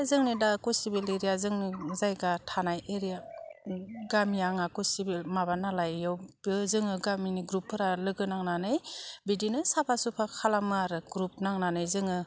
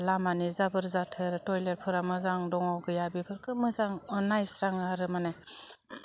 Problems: none marked